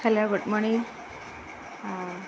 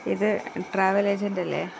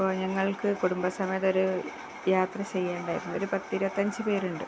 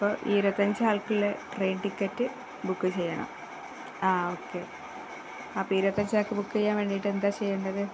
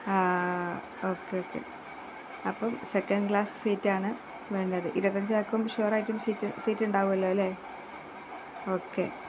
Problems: constant background noise, low volume